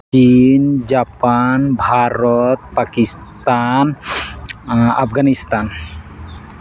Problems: constant background noise